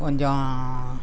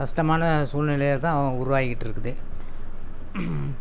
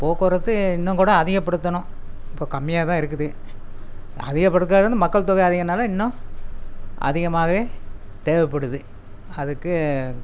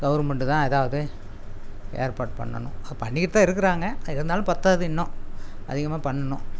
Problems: constant background noise